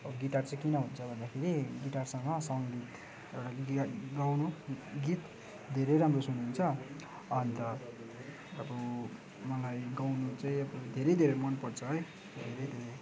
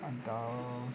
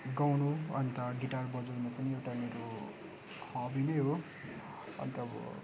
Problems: constant background noise